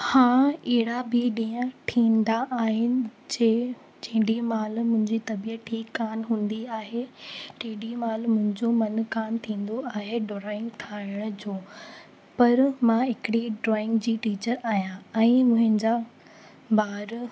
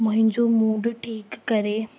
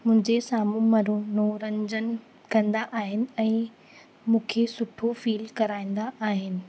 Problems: constant background noise